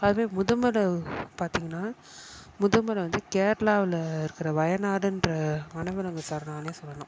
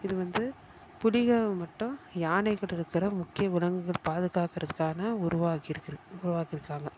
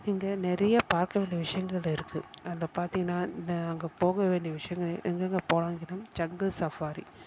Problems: background sounds at intervals